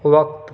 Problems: none marked